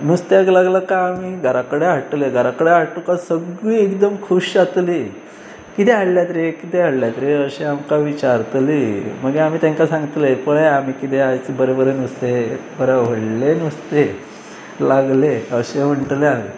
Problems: background sounds at intervals